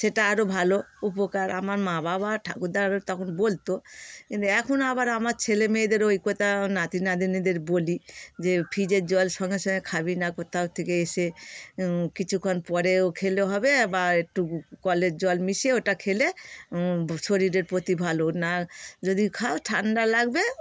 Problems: none marked